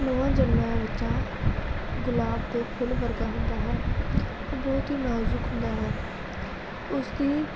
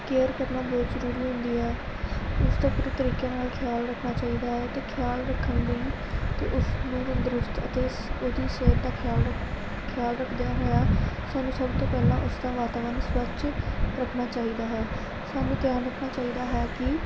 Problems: constant background noise